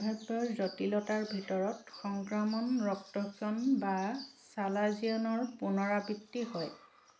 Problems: constant background noise